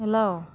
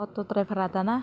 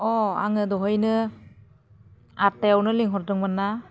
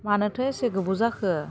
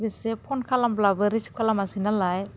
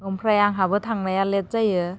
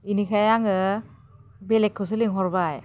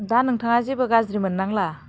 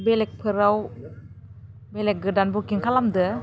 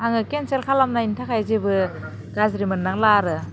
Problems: constant background noise